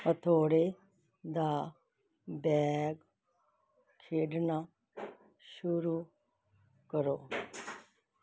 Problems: background sounds at intervals